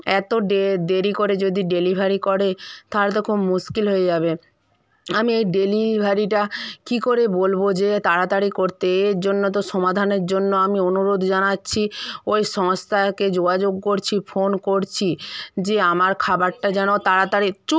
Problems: background conversations at intervals